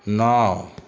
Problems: constant background noise